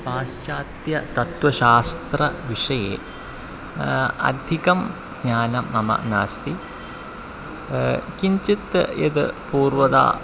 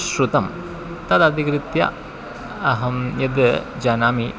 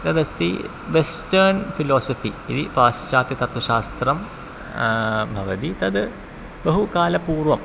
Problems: constant background noise